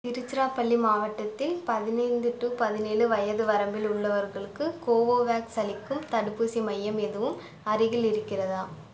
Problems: background sounds at intervals